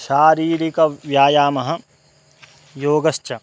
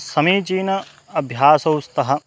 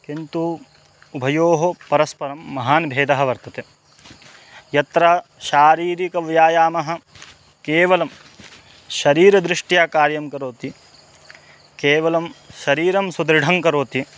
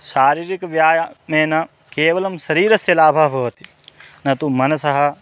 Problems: constant background noise